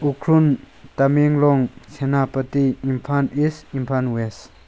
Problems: background conversations at intervals